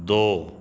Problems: background sounds at intervals